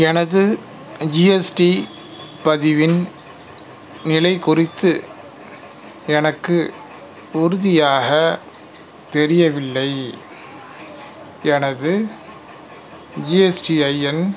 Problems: background sounds at intervals